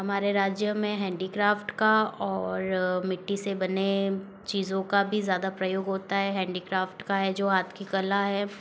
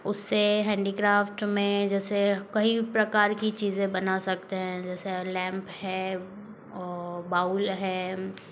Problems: background sounds at intervals